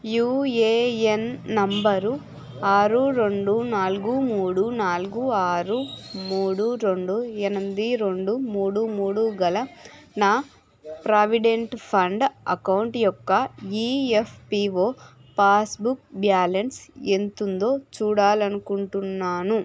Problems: constant background noise, background conversations at intervals